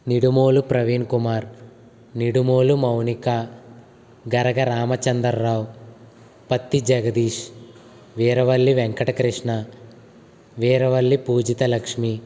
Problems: constant background noise